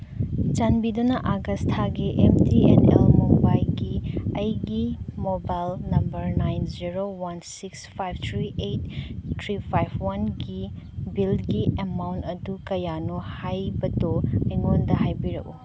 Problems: constant background noise